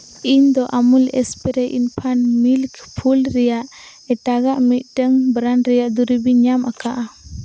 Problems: constant background noise